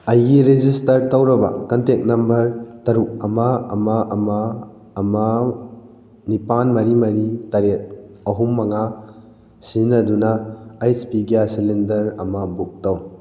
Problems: none marked